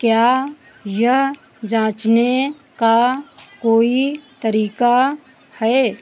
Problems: none marked